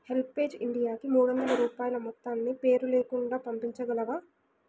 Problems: background sounds at intervals